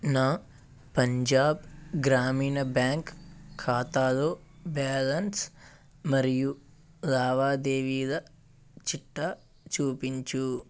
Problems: constant background noise